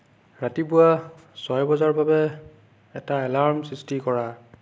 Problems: none marked